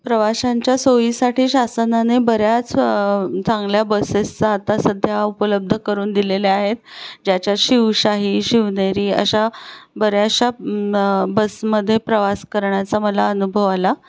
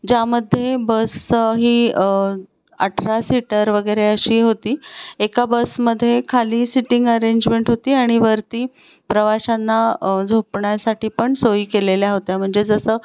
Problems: background sounds at intervals